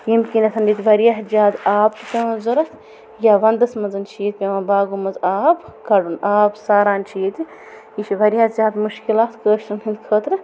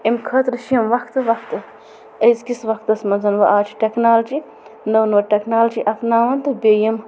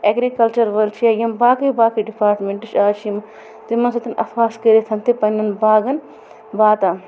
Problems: constant background noise